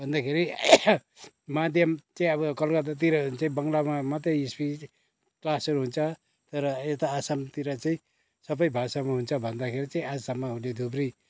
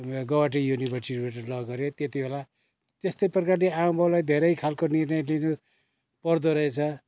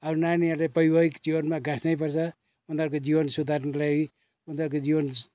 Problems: none marked